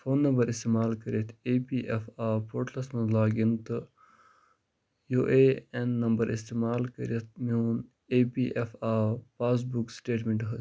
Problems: none marked